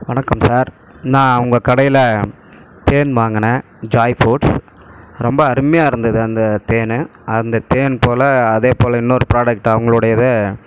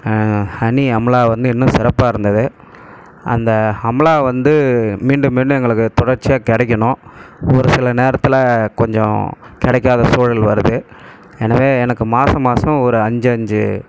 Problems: background sounds at intervals